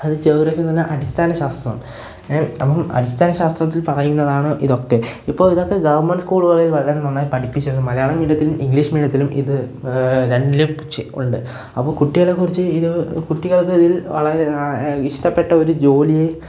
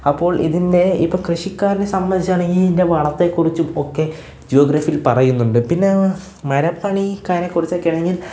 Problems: background sounds at intervals